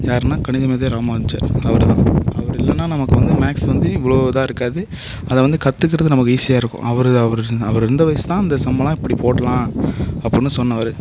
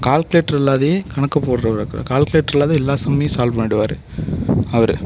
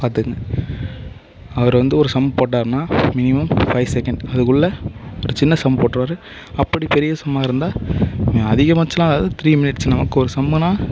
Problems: constant background noise